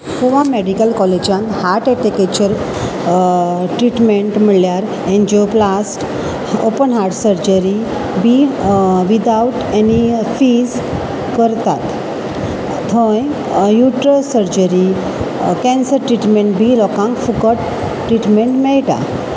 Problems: constant background noise